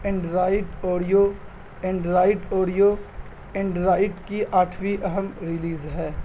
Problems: constant background noise